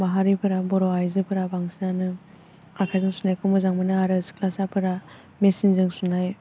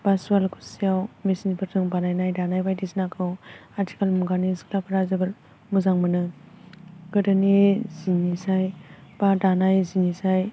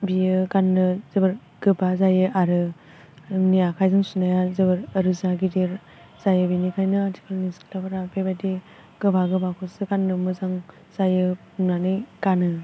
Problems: constant background noise